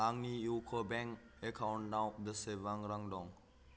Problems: none marked